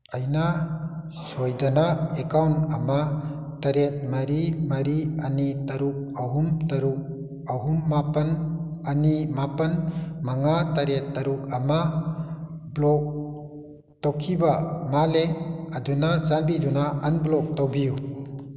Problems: echo